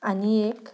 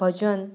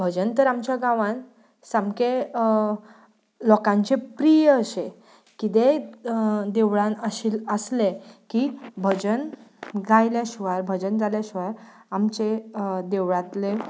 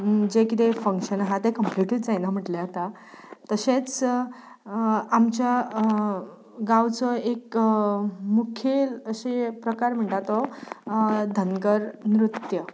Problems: none marked